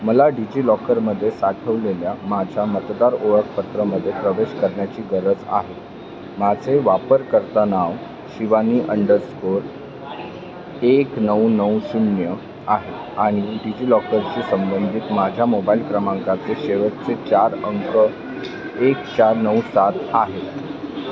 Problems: constant background noise, background conversations at intervals